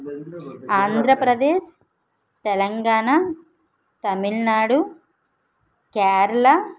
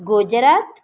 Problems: background conversations at intervals